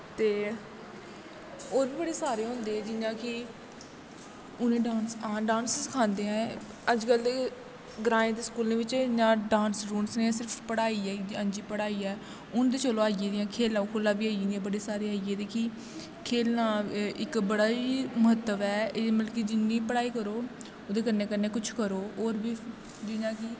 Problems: constant background noise, echo